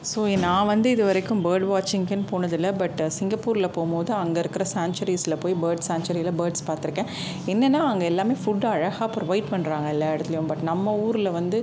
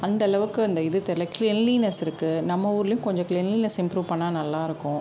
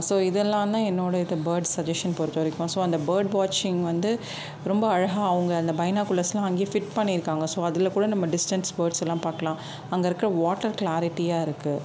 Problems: constant background noise